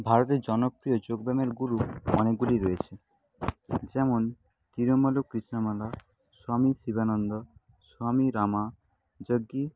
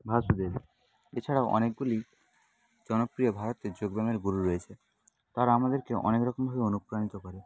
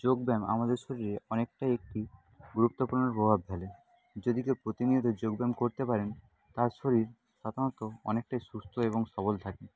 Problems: constant background noise, low volume